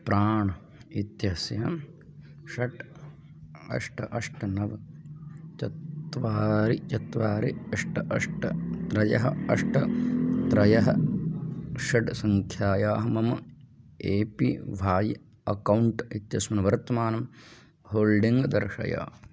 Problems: background sounds at intervals